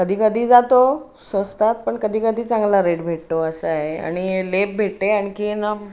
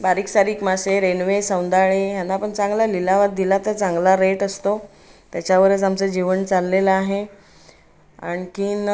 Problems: background sounds at intervals